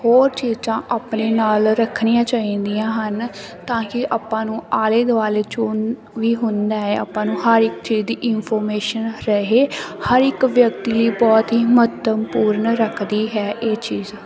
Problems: constant background noise